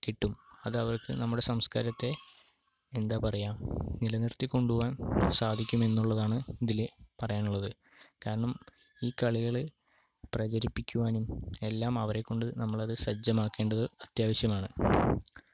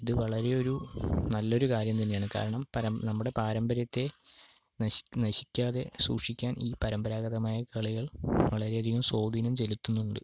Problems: low volume